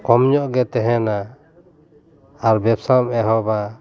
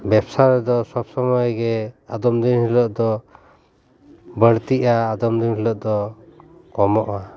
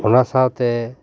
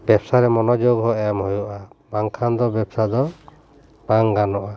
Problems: none marked